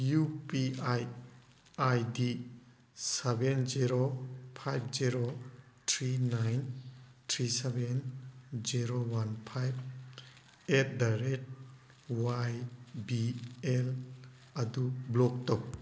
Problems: background sounds at intervals